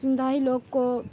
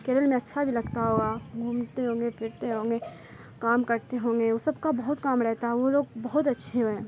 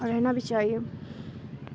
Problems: constant background noise